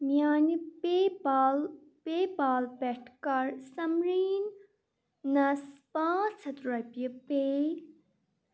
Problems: none marked